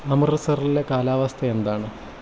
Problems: constant background noise